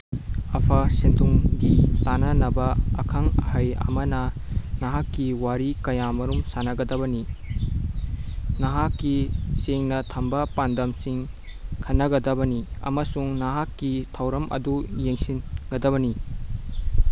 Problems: constant background noise